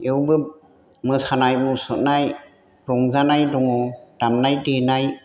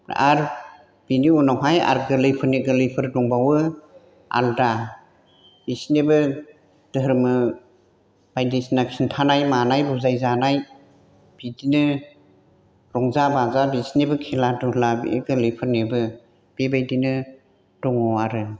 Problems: none marked